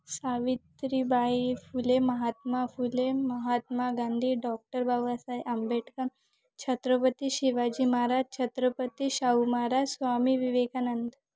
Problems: background sounds at intervals